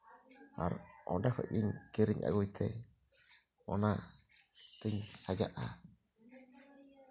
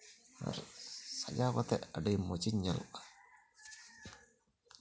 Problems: low volume